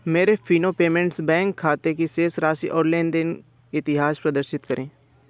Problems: background sounds at intervals